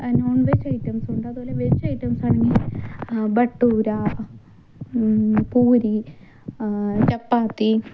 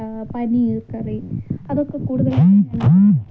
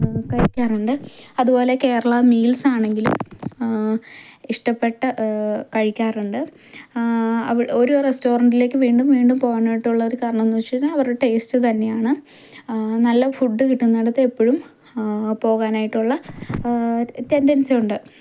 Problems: background sounds at intervals, low volume